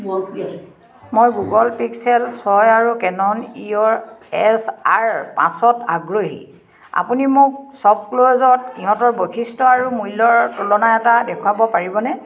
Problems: none marked